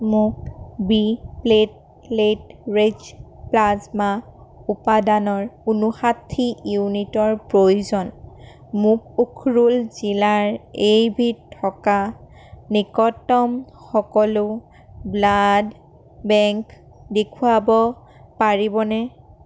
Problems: none marked